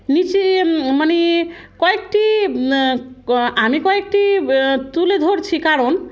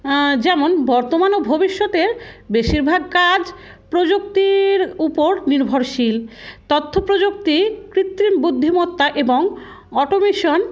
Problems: constant background noise